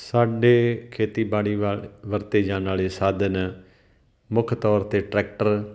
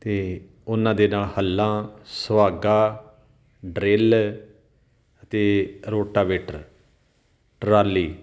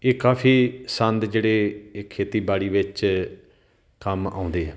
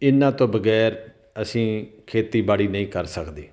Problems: background sounds at intervals